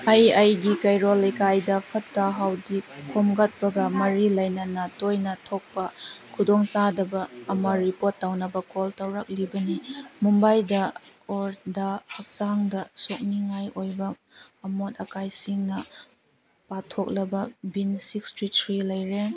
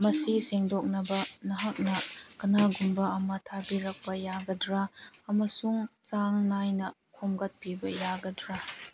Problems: none marked